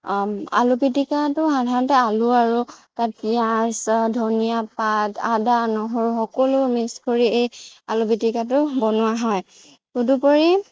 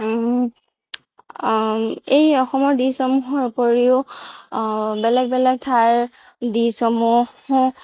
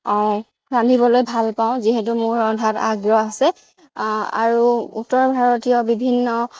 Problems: none marked